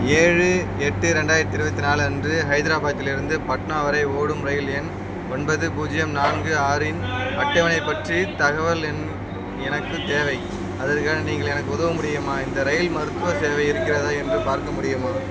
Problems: constant background noise, background conversations at intervals